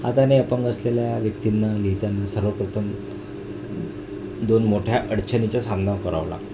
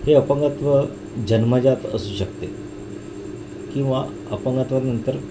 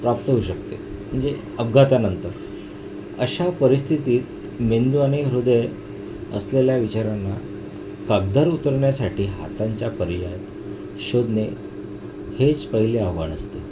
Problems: constant background noise